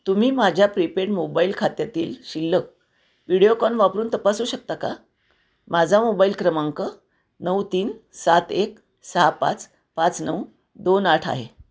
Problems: none marked